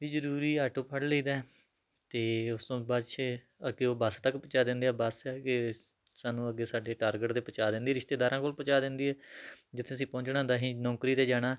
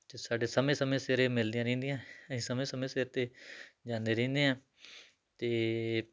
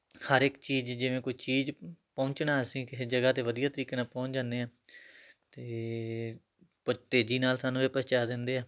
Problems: none marked